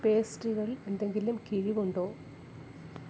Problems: none marked